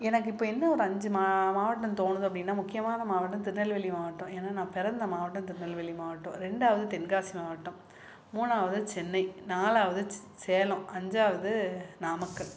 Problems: background sounds at intervals